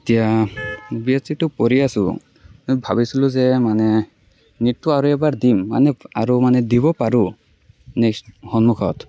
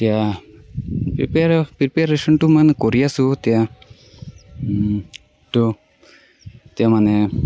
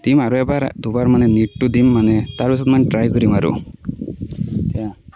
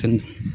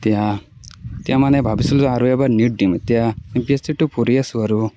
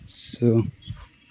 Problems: none marked